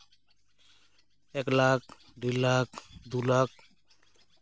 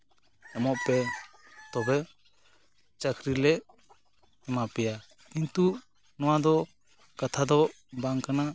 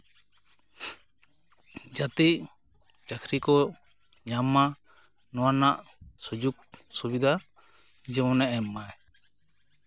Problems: constant background noise, background conversations at intervals